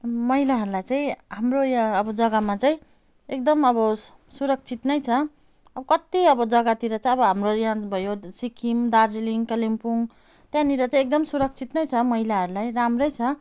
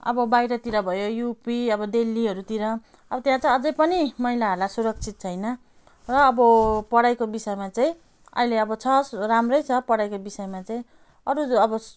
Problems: none marked